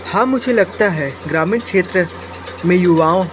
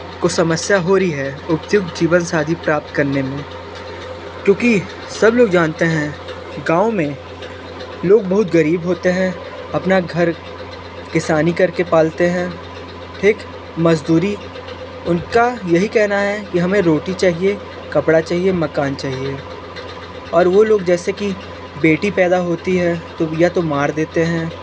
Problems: constant background noise